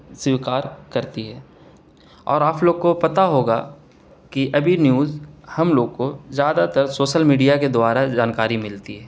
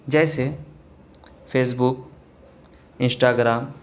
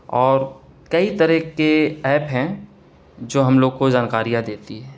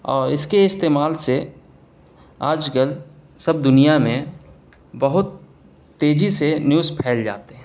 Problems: none marked